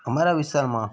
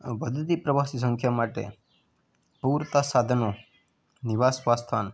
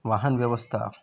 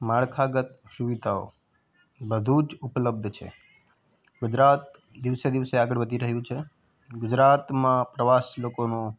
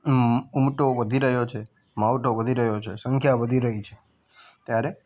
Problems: background sounds at intervals